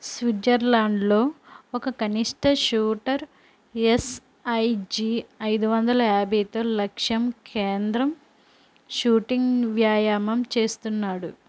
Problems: constant background noise